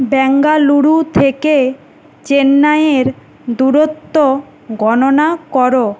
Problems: constant background noise